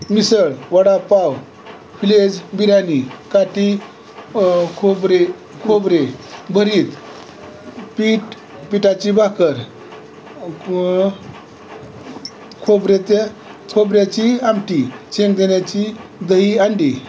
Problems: constant background noise